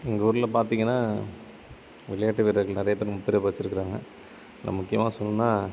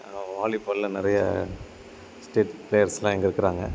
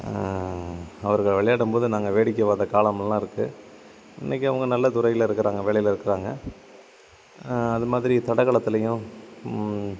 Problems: constant background noise